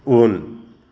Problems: background sounds at intervals